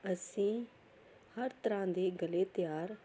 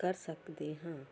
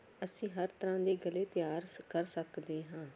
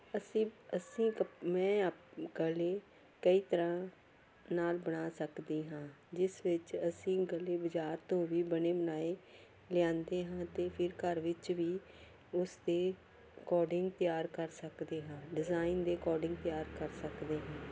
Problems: background sounds at intervals